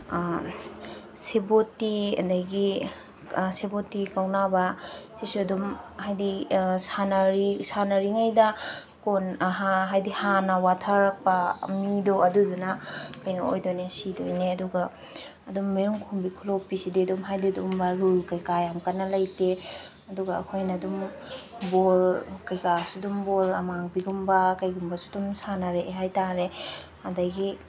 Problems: background sounds at intervals